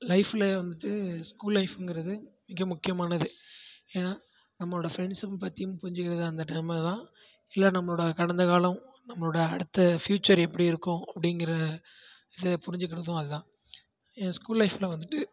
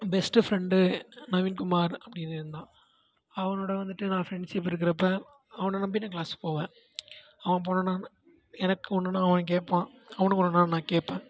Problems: background sounds at intervals, background conversations at intervals